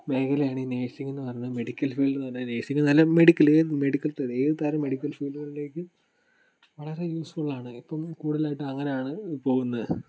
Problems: background sounds at intervals